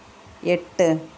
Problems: none marked